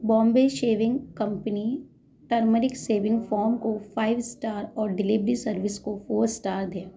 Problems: background sounds at intervals